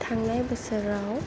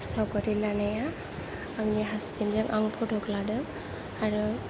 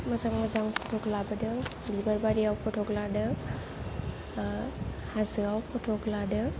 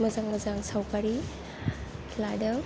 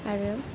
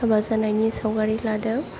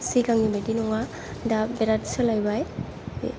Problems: low volume